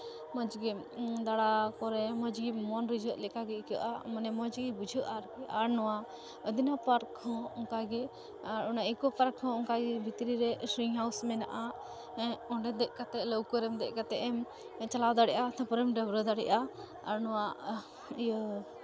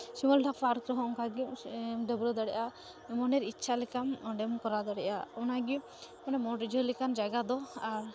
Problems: constant background noise, continuous background conversations